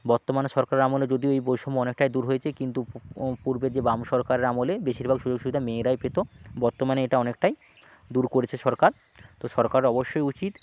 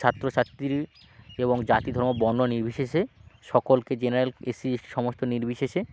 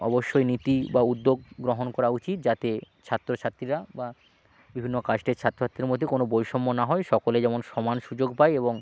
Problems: background sounds at intervals, background conversations at intervals